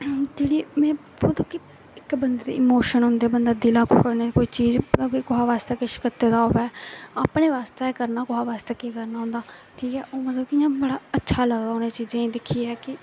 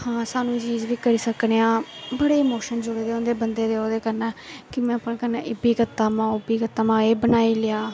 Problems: none marked